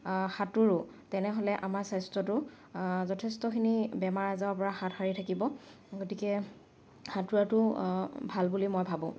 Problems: background sounds at intervals